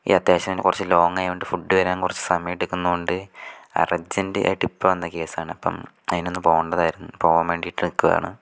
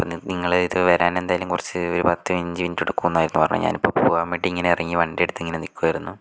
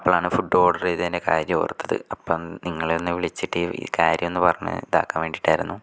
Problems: none marked